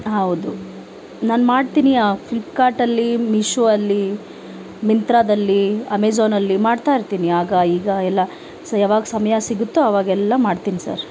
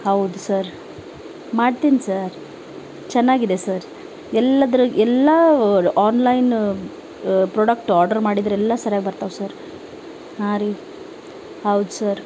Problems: none marked